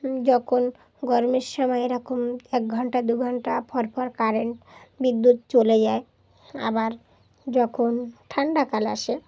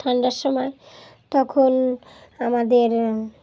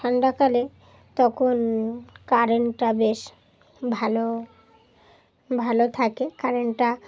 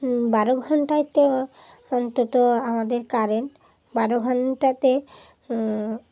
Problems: background sounds at intervals, background conversations at intervals